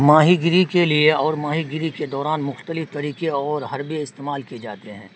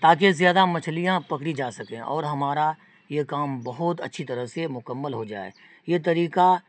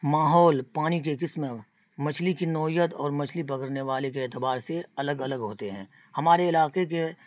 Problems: constant background noise